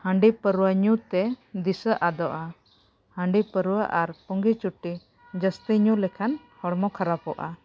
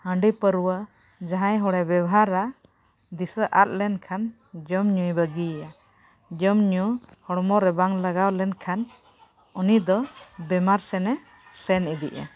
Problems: background sounds at intervals